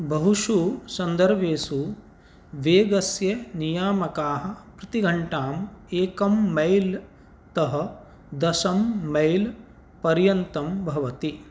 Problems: none marked